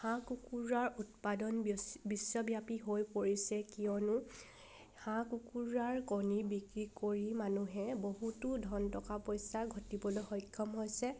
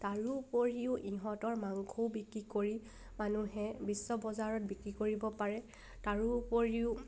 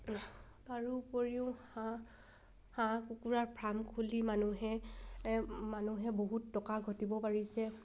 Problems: background sounds at intervals